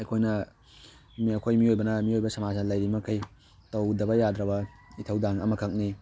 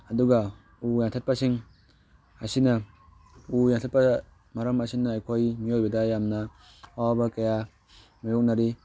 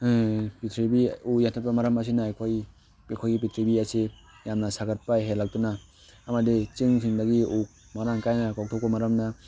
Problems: background sounds at intervals